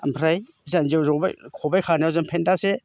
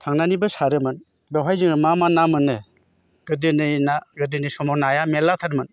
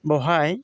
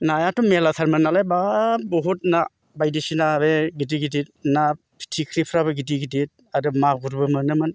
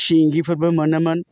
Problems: none marked